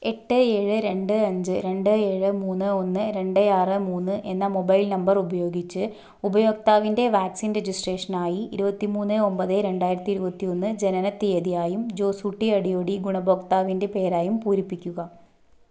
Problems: none marked